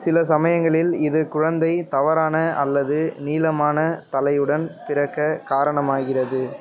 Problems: none marked